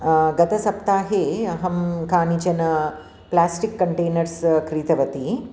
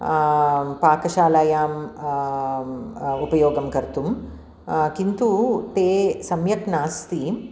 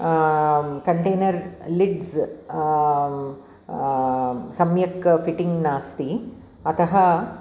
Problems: none marked